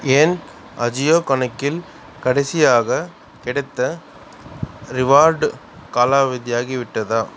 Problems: none marked